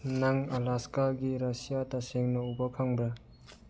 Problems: low volume